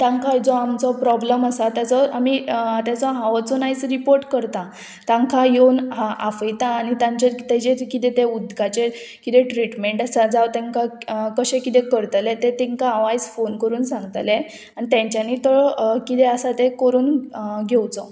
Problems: constant background noise